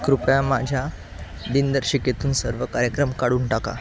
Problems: constant background noise